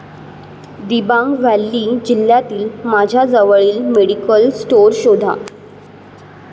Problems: none marked